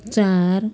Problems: background sounds at intervals